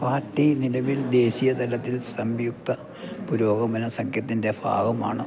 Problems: none marked